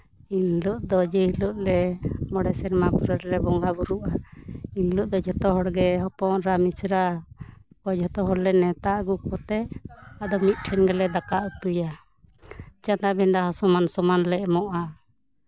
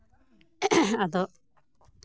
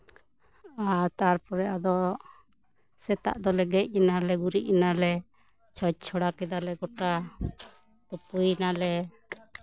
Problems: constant background noise, background conversations at intervals